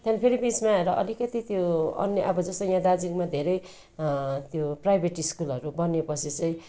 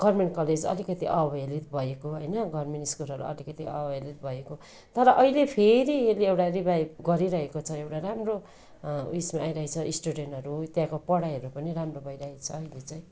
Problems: constant background noise